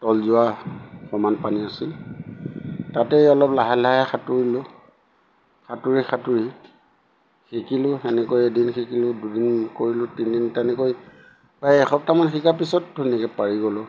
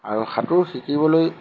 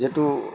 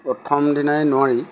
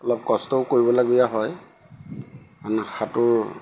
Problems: background sounds at intervals